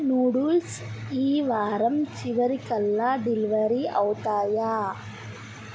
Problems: constant background noise